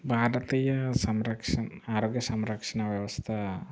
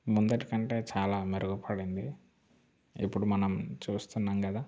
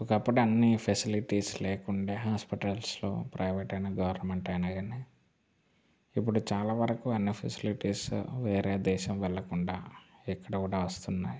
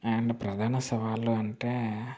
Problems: constant background noise